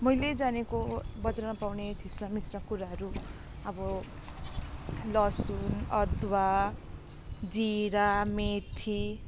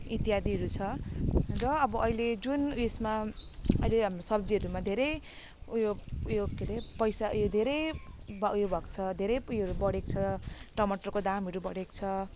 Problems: none marked